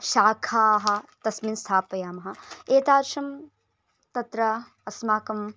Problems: none marked